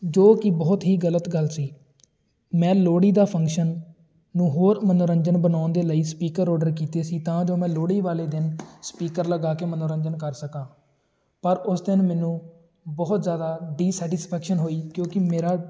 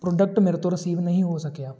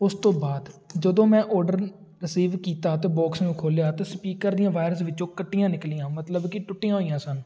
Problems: none marked